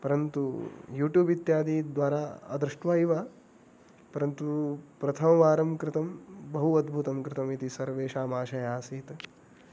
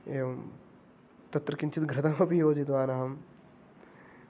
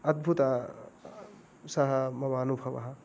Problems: background sounds at intervals